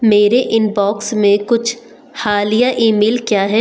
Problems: constant background noise